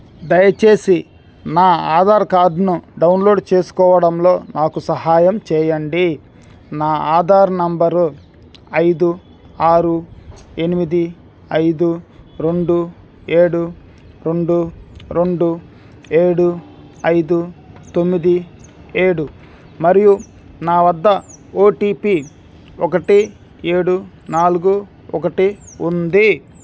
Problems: background sounds at intervals